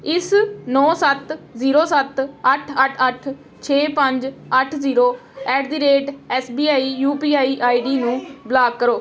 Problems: background sounds at intervals, background conversations at intervals